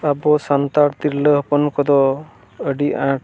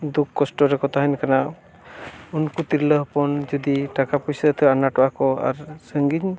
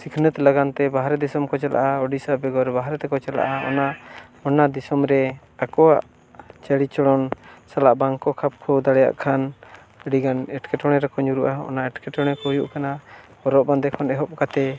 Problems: constant background noise